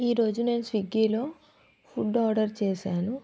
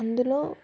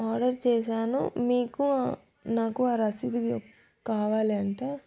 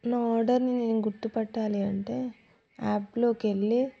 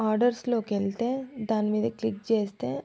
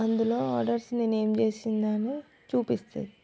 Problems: none marked